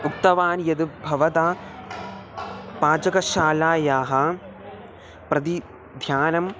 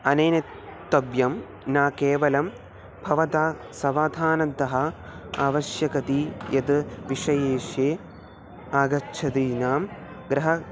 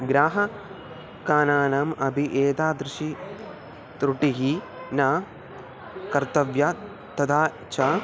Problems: constant background noise